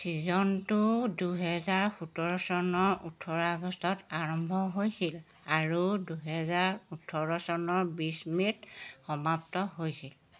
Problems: none marked